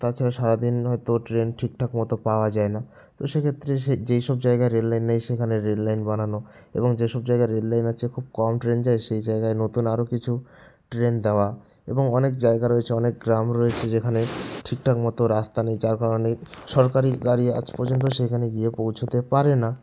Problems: none marked